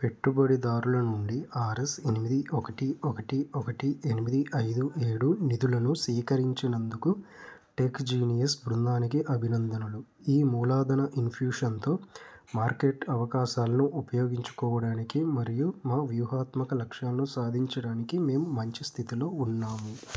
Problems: constant background noise